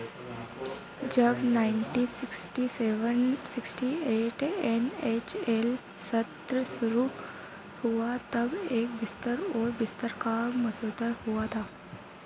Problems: constant background noise